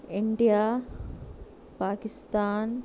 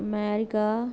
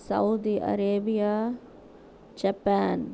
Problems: none marked